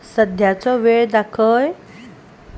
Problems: none marked